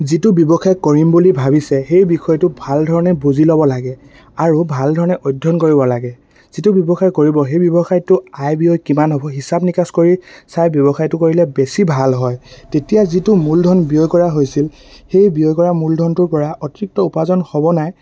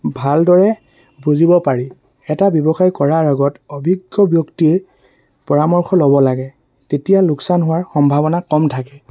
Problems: constant background noise